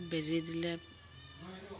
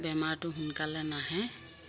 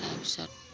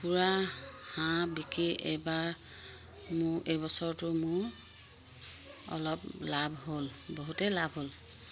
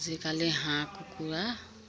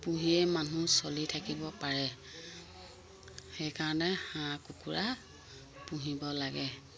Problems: constant background noise